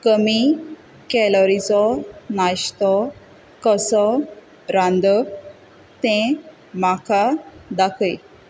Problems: none marked